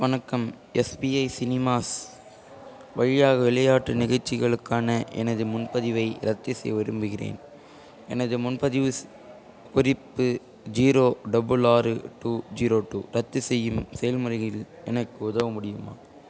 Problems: constant background noise